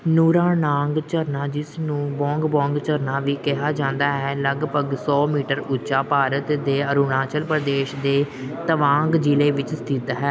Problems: background sounds at intervals